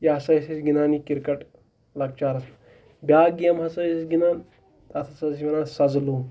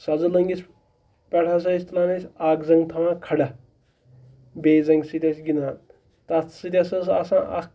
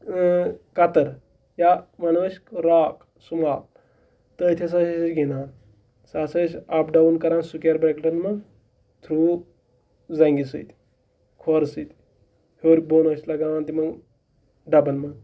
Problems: background sounds at intervals, background conversations at intervals